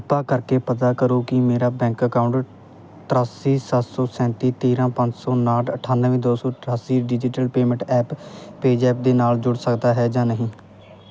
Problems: none marked